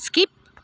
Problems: none marked